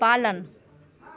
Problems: constant background noise